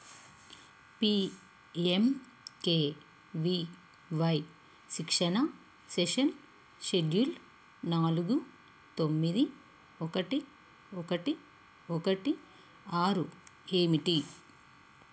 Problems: constant background noise